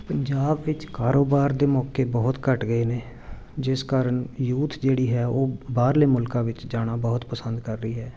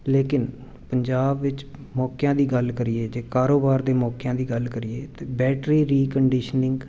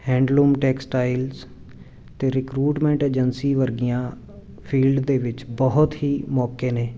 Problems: none marked